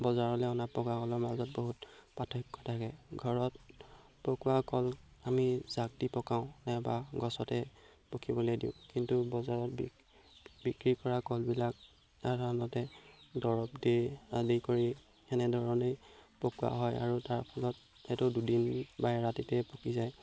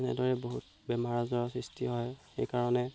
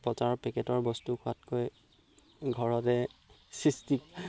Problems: background sounds at intervals